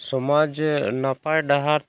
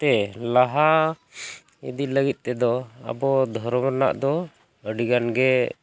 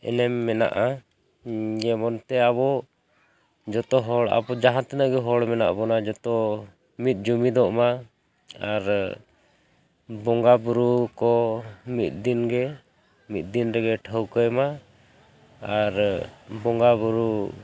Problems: constant background noise, background conversations at intervals